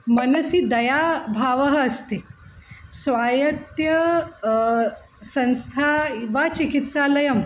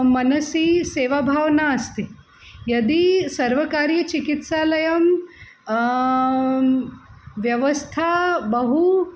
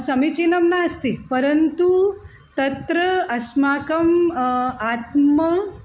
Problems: none marked